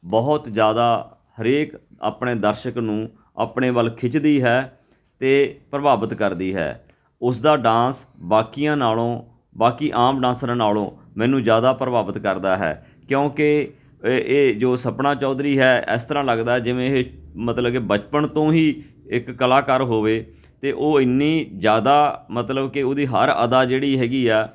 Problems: background sounds at intervals